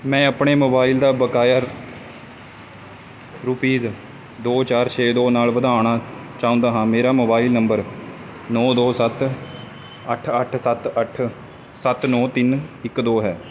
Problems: none marked